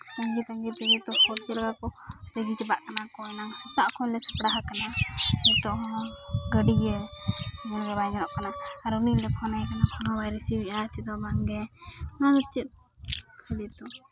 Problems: constant background noise, background conversations at intervals